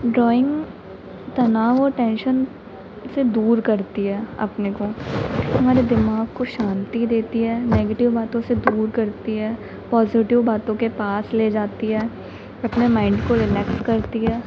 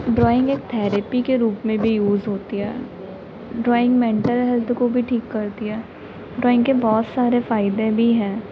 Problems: constant background noise